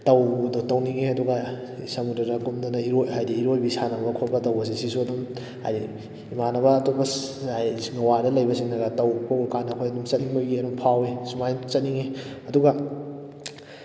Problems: background sounds at intervals